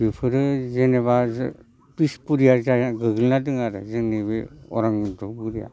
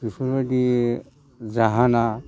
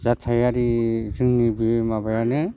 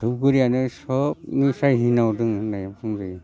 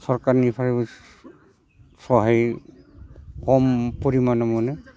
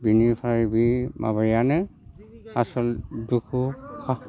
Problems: constant background noise